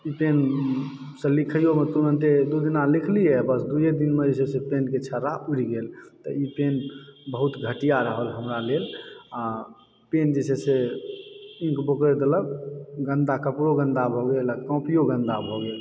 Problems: background sounds at intervals